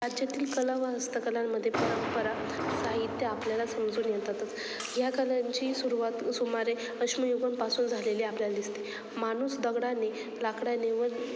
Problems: constant background noise, background conversations at intervals